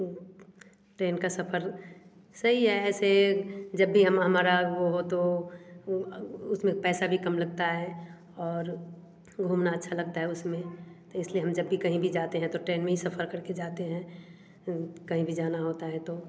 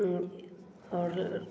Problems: none marked